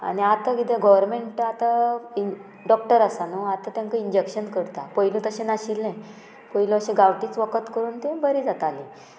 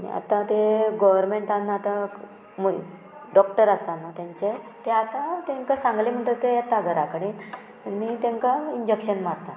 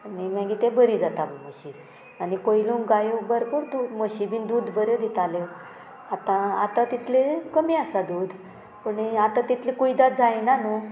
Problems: none marked